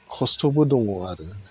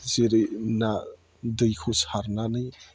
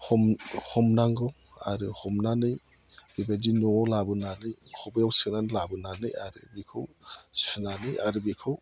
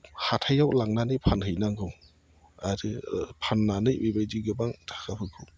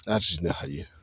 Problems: none marked